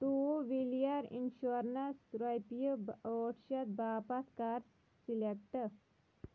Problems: background sounds at intervals, low volume